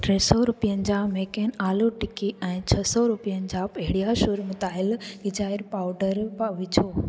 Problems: constant background noise, echo